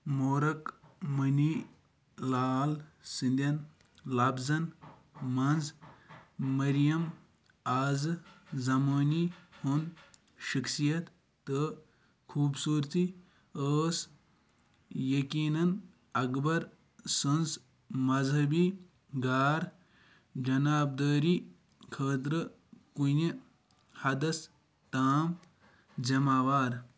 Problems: none marked